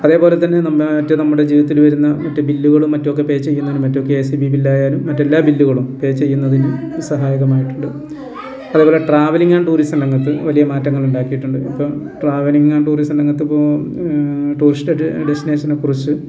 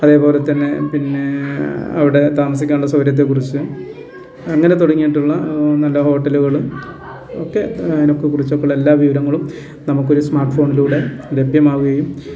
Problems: constant background noise